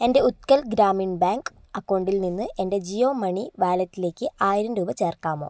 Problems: none marked